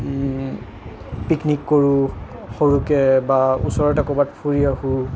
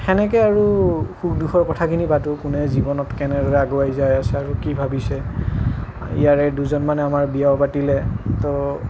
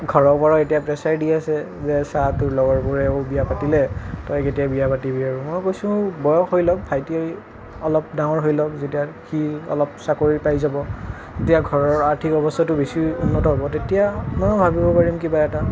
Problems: none marked